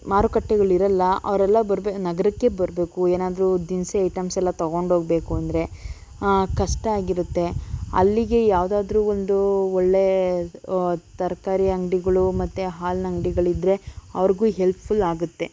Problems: none marked